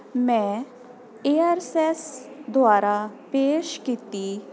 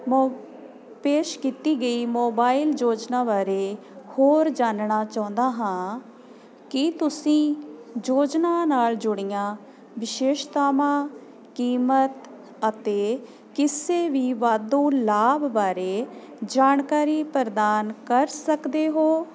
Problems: constant background noise